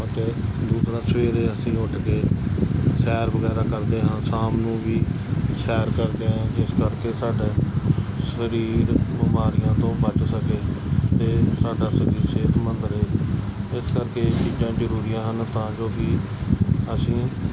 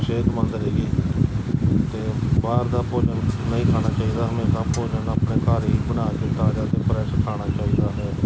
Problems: constant background noise